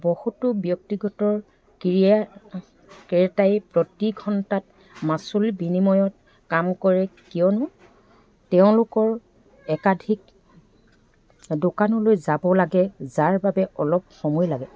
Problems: background sounds at intervals